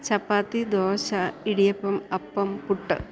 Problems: none marked